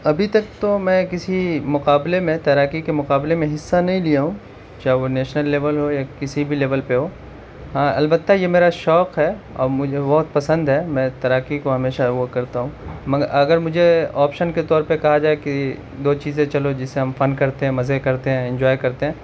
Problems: constant background noise